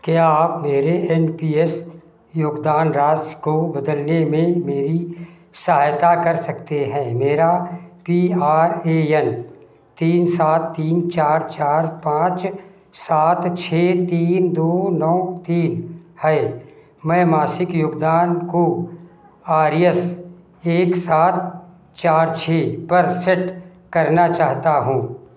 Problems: background sounds at intervals, echo